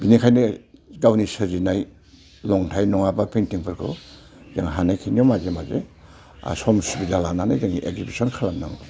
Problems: none marked